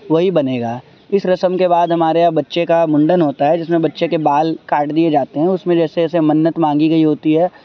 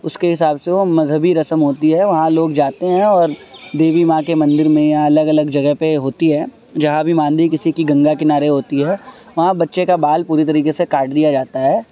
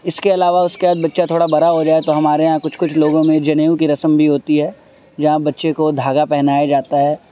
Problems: constant background noise